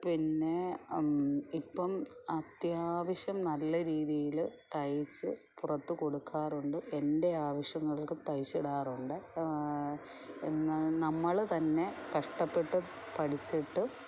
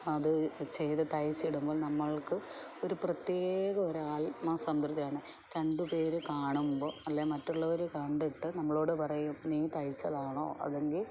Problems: low volume